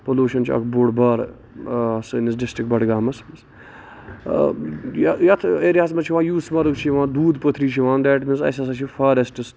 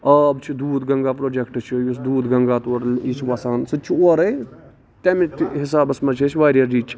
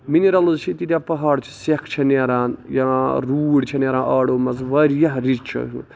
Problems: constant background noise, background conversations at intervals